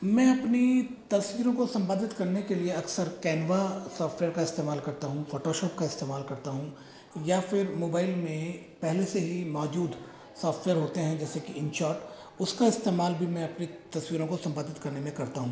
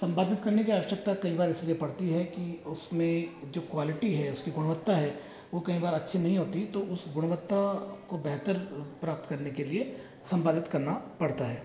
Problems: echo